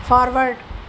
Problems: constant background noise